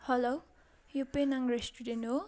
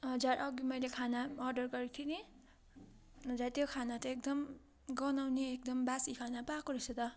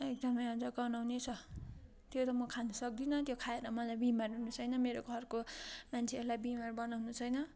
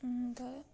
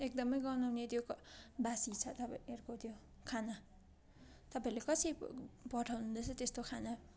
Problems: continuous background conversations